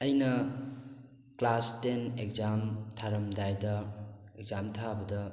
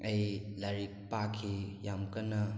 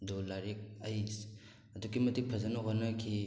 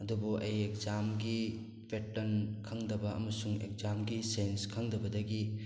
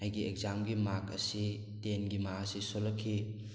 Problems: background sounds at intervals